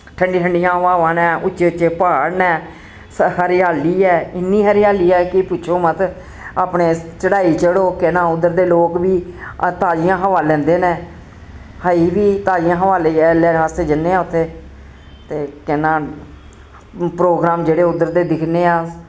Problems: constant background noise